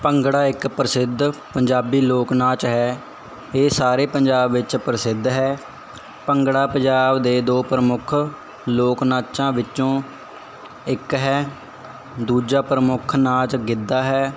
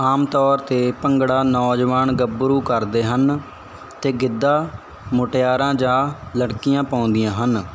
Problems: none marked